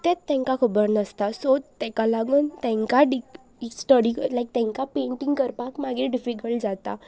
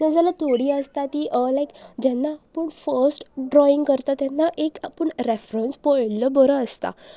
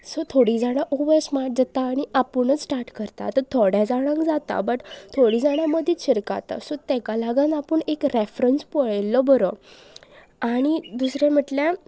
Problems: background sounds at intervals